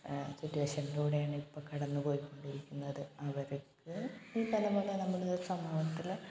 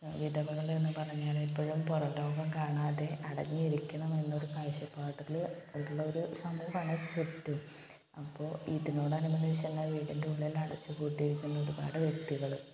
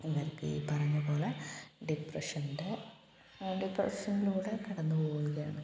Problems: background sounds at intervals, low volume